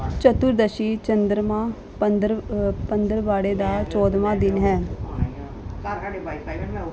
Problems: continuous background conversations